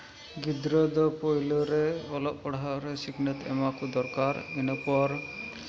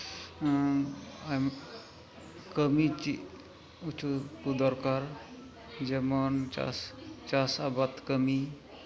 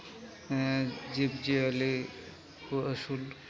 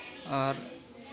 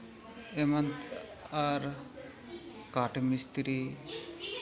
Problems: background sounds at intervals, continuous background conversations